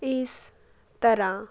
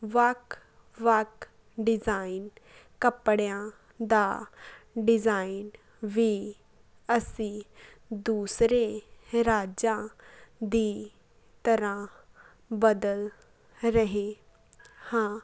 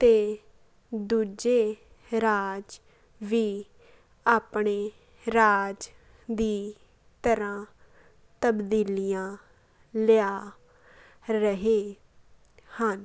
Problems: none marked